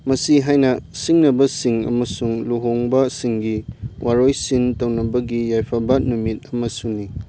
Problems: background sounds at intervals